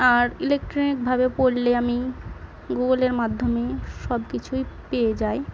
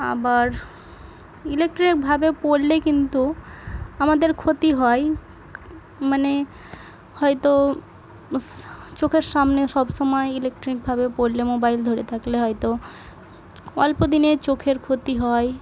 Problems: none marked